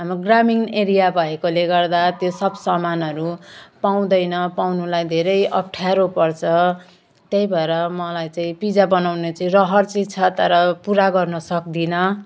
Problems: none marked